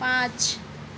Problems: constant background noise